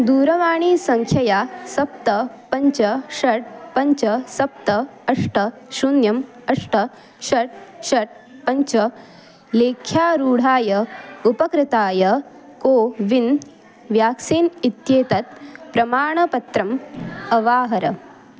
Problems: continuous background conversations